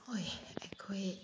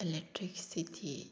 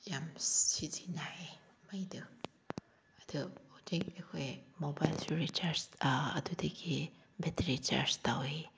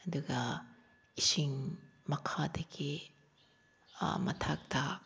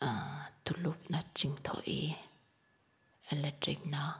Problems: background sounds at intervals